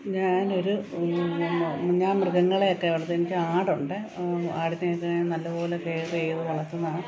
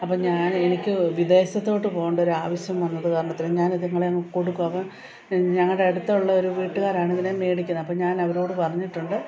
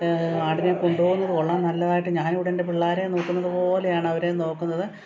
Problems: continuous background conversations